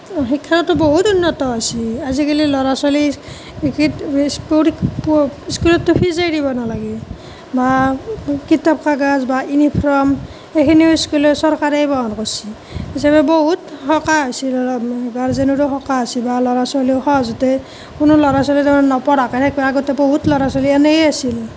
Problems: constant background noise